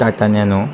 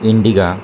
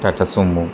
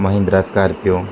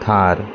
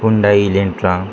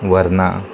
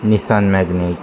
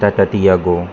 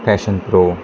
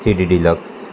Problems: constant background noise